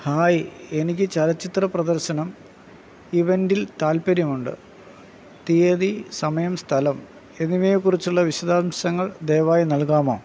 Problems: background sounds at intervals